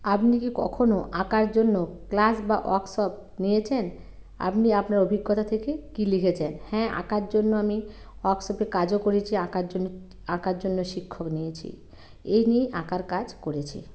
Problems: constant background noise